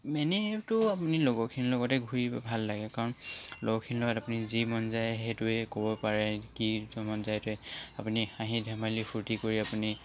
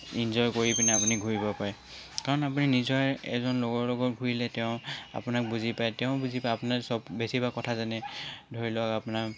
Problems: none marked